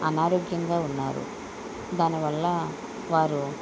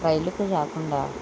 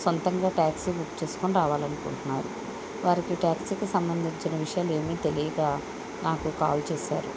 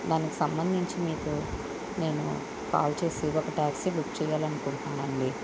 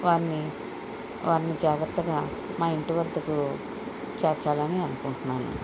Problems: constant background noise